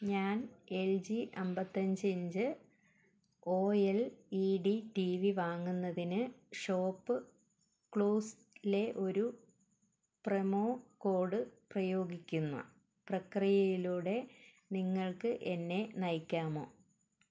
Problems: background sounds at intervals